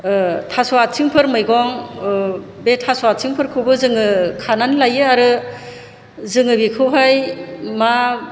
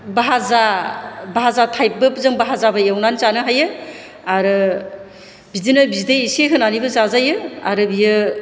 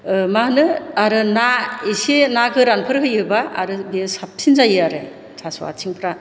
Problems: low volume